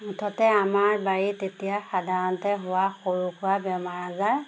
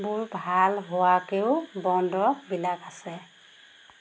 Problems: constant background noise